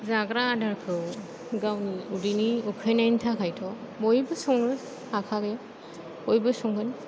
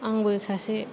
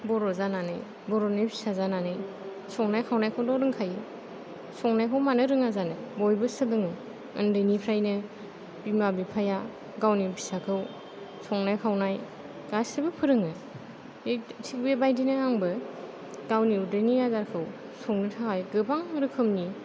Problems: none marked